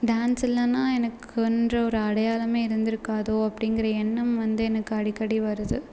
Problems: none marked